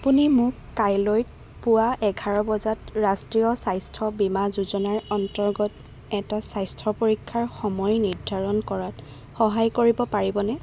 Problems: constant background noise